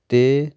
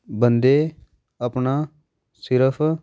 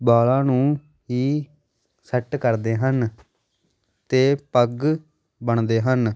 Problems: background sounds at intervals